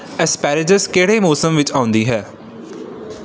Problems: background sounds at intervals